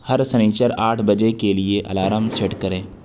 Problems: constant background noise